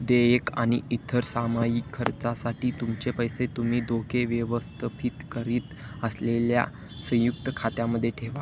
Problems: constant background noise